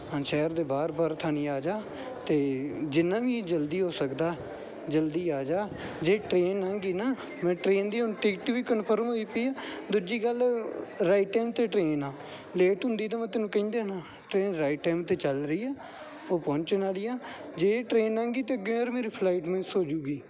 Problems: background sounds at intervals